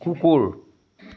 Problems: none marked